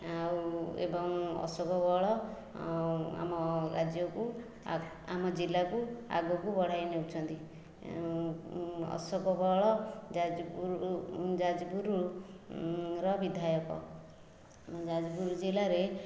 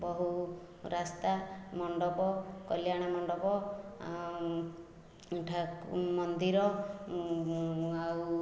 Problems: none marked